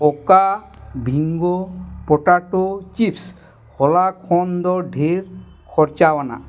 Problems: constant background noise